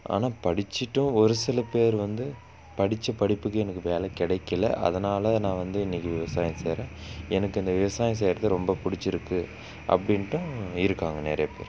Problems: constant background noise